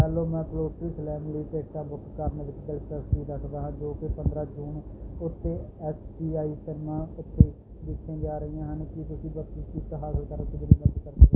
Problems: none marked